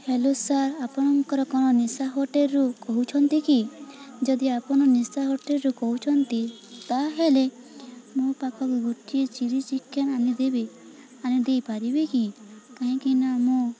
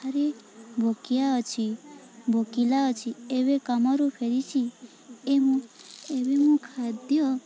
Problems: constant background noise, continuous background conversations